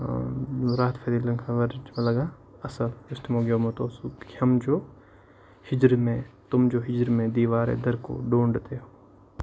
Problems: constant background noise